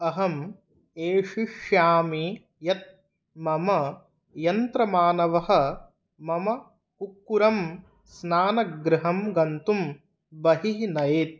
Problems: none marked